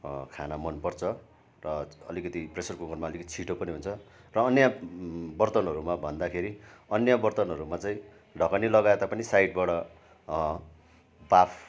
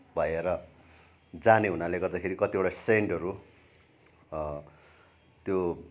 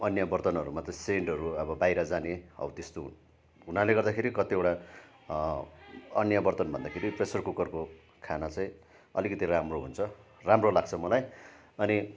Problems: none marked